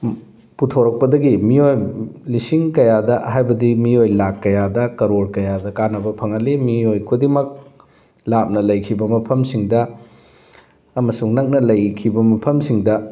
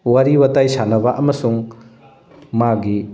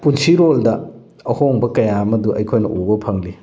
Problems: background sounds at intervals, background conversations at intervals